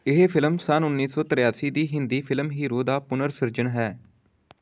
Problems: none marked